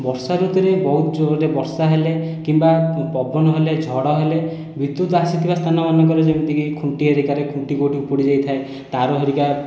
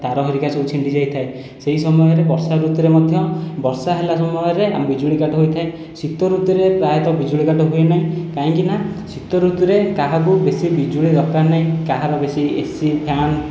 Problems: background sounds at intervals